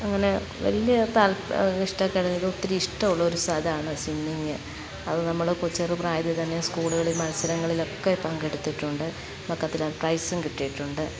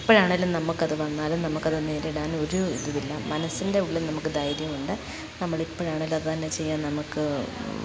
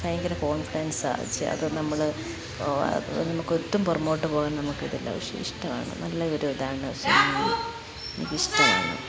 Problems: constant background noise, background conversations at intervals, low volume